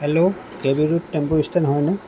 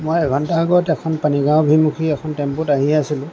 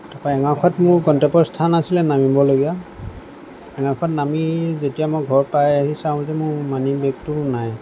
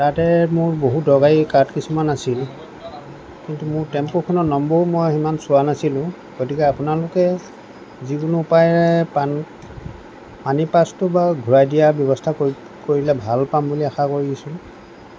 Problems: constant background noise